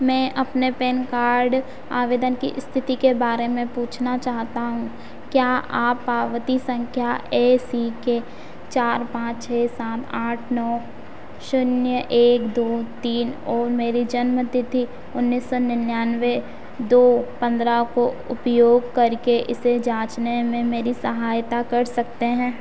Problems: constant background noise